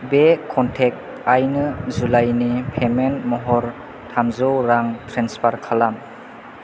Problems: none marked